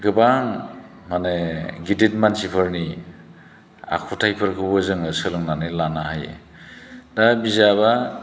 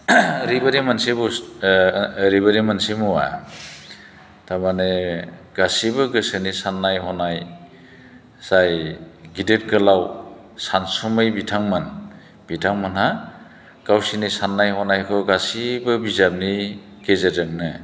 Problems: none marked